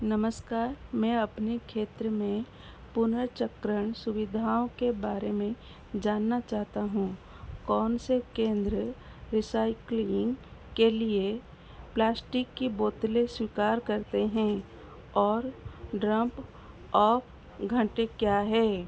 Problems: constant background noise